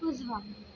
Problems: none marked